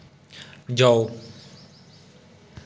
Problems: none marked